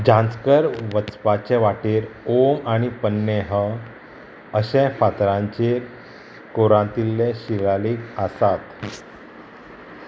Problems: constant background noise